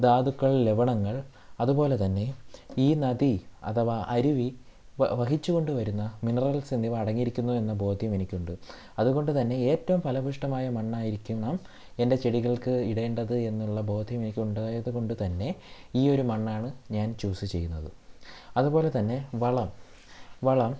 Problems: low volume